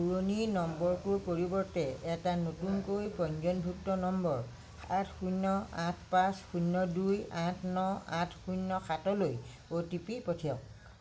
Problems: low volume